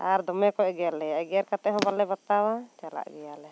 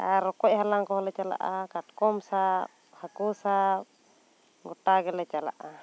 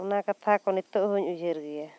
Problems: constant background noise